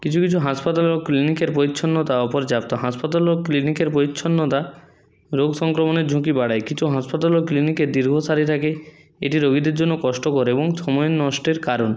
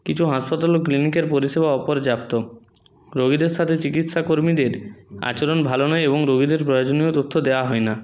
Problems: none marked